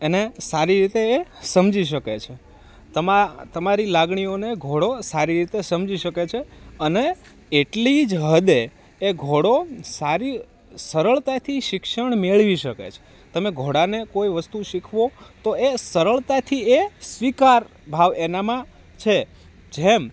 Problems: constant background noise